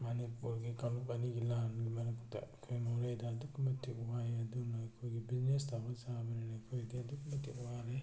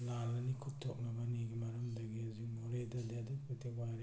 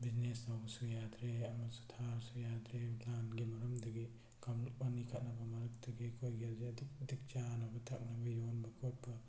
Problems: none marked